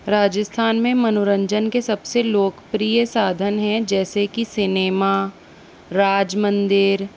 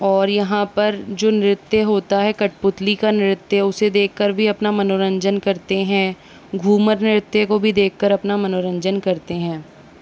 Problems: constant background noise